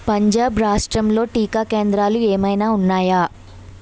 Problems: constant background noise